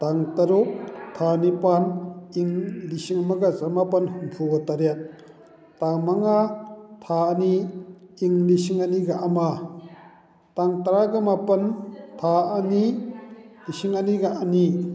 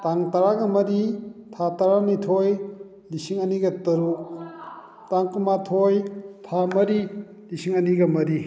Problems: none marked